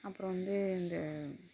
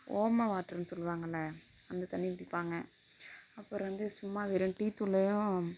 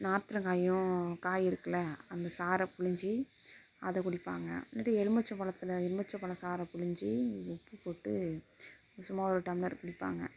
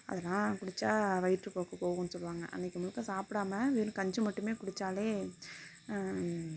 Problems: constant background noise, low volume